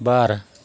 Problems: none marked